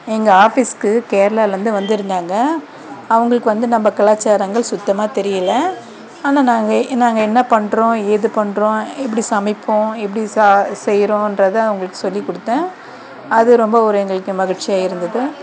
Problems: background sounds at intervals